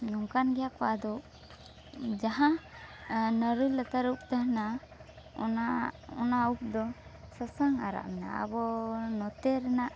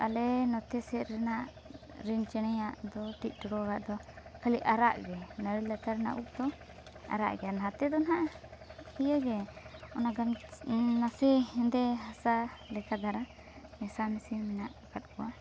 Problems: constant background noise